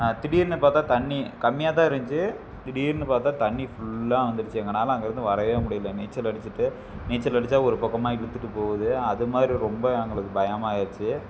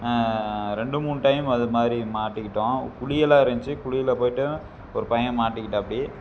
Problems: constant background noise